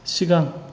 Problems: constant background noise